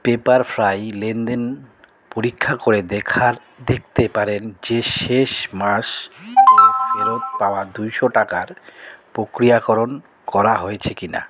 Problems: none marked